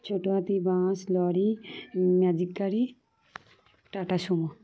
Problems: none marked